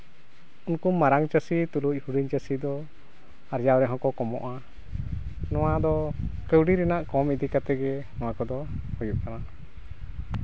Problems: constant background noise